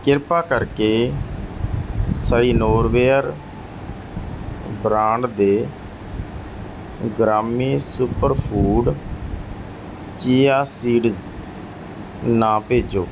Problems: background sounds at intervals